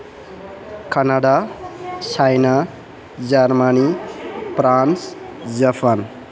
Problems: background conversations at intervals